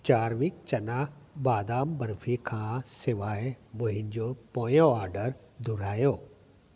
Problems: constant background noise, echo